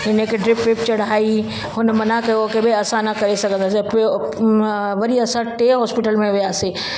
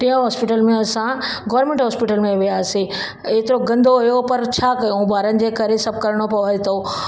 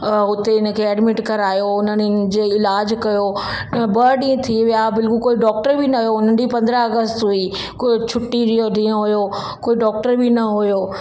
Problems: background sounds at intervals